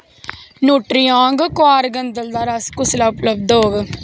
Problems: none marked